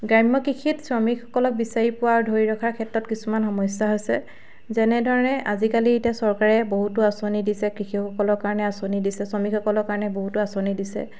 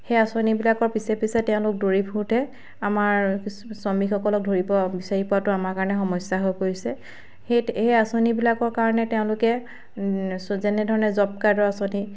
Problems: background sounds at intervals